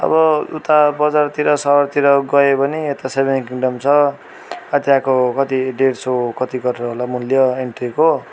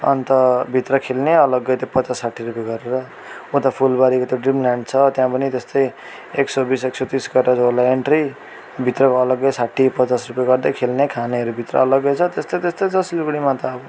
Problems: constant background noise